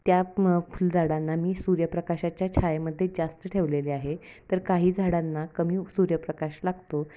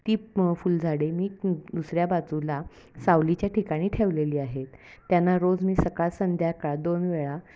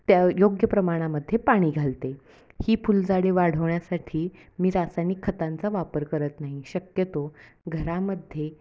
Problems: background sounds at intervals, background conversations at intervals